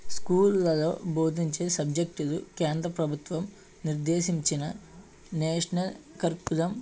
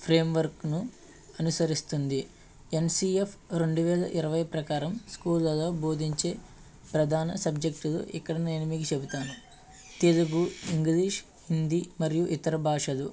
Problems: background sounds at intervals